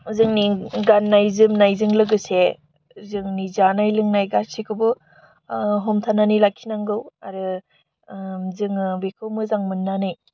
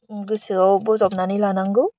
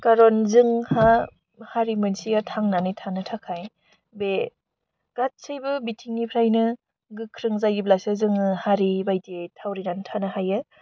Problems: none marked